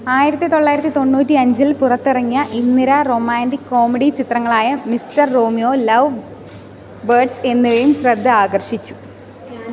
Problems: continuous background conversations